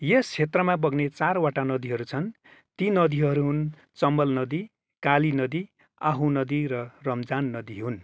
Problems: background sounds at intervals